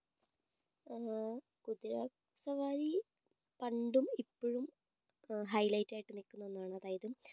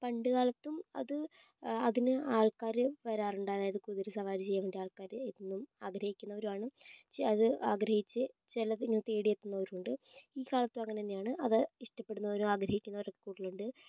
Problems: low volume